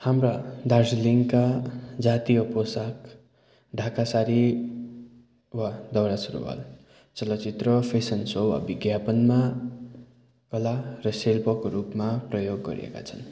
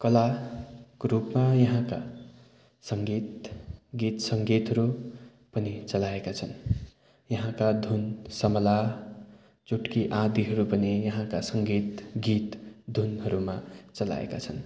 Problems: continuous background conversations